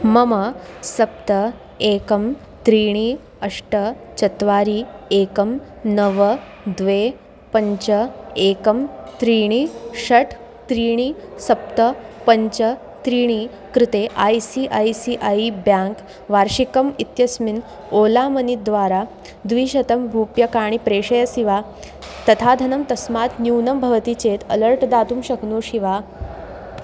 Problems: constant background noise